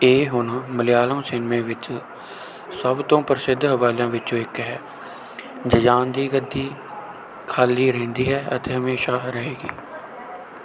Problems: none marked